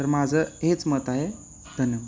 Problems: background sounds at intervals